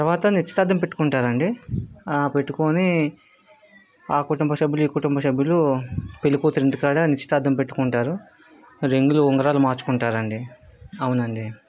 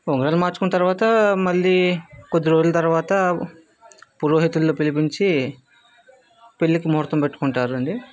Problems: background sounds at intervals